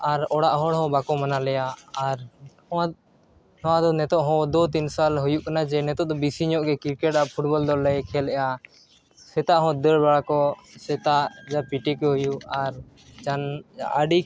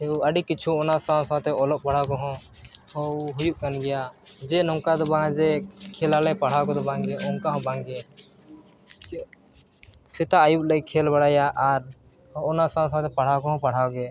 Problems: background sounds at intervals